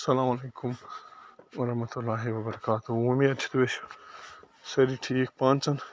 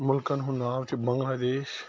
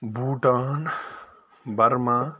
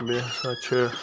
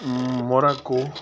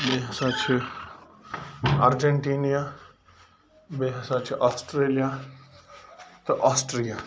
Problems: constant background noise